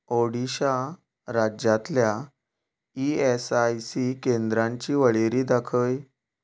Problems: background sounds at intervals